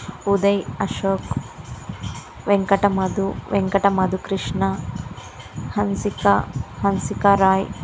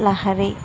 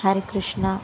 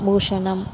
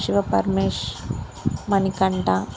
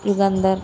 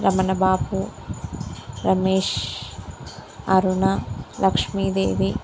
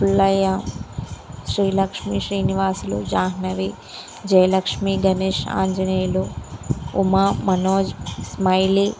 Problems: constant background noise